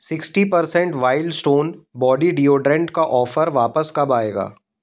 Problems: background sounds at intervals